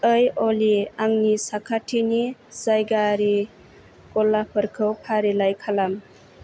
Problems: none marked